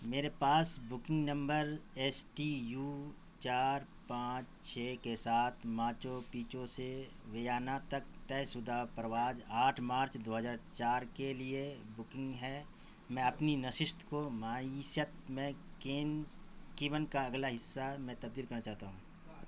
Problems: constant background noise